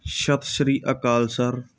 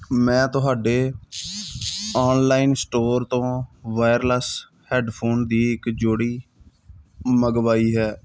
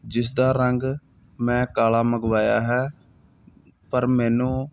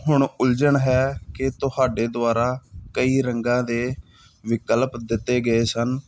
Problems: none marked